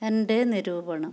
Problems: low volume